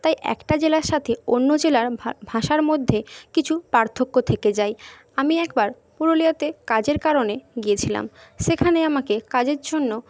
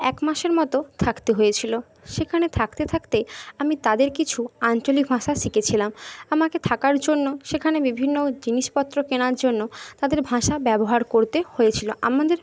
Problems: none marked